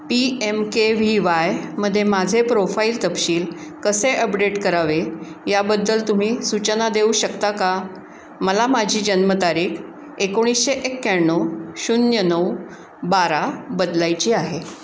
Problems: none marked